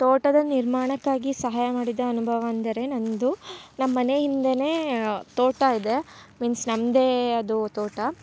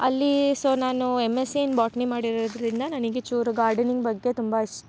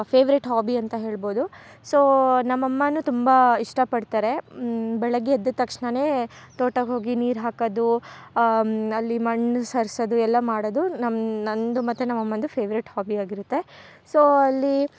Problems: none marked